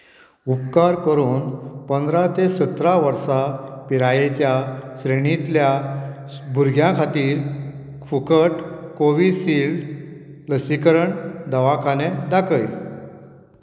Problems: background sounds at intervals